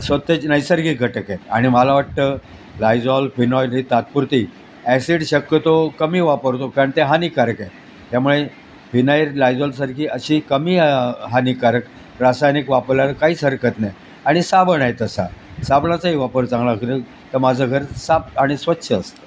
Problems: constant background noise